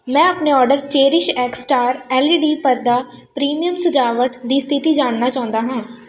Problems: constant background noise